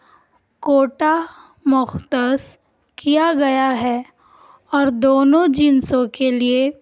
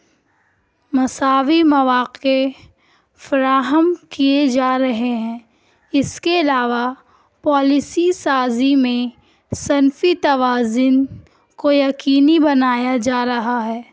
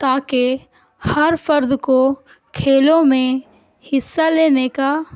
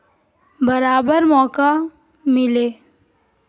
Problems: none marked